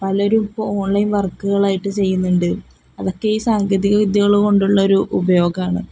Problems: none marked